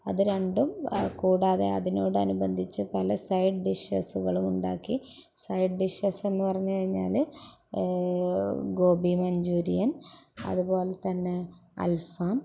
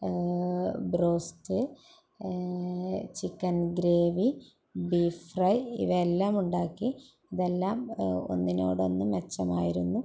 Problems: background sounds at intervals